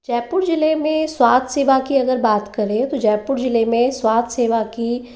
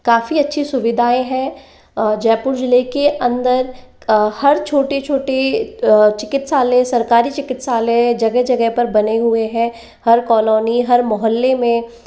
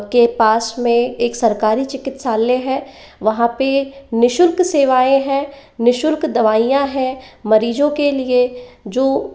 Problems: none marked